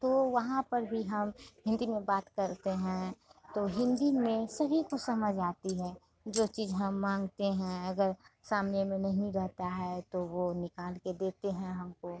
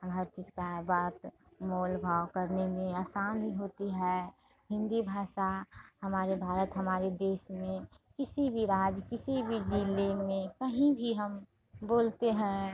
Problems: constant background noise